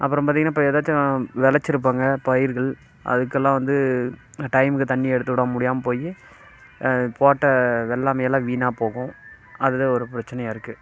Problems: constant background noise